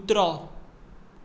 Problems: background sounds at intervals